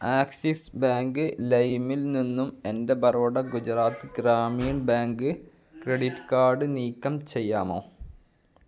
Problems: none marked